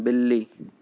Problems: none marked